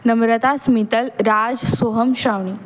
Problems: background sounds at intervals